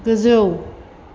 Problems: none marked